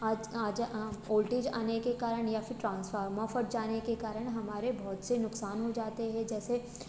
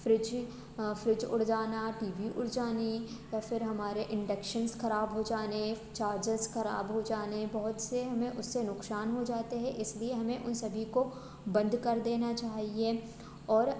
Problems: constant background noise